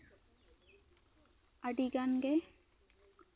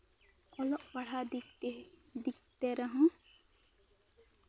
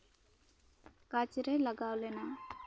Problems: background sounds at intervals